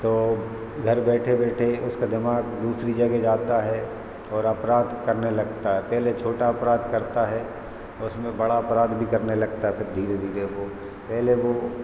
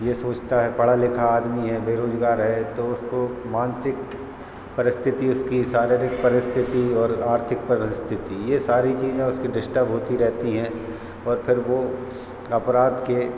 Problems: none marked